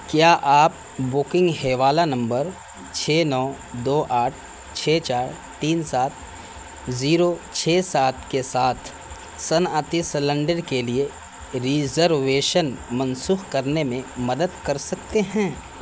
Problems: constant background noise